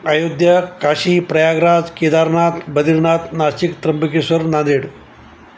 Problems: constant background noise